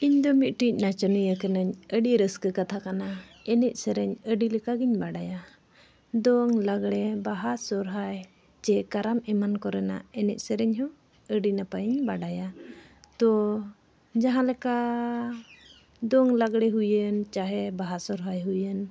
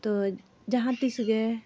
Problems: none marked